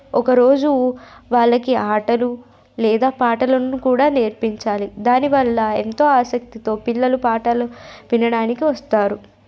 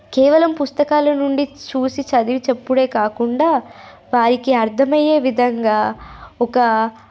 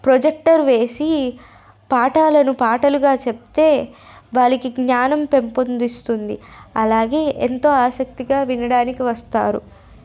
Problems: none marked